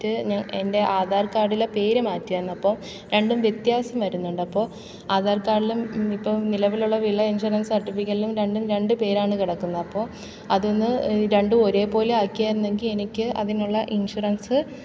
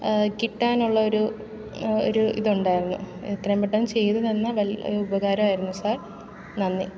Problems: background sounds at intervals